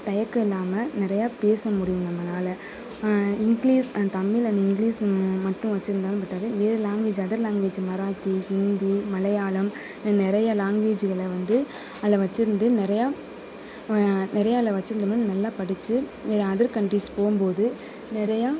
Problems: constant background noise